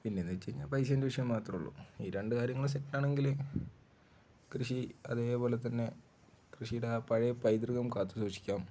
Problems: none marked